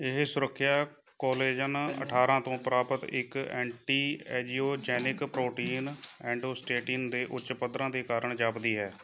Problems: background sounds at intervals, background conversations at intervals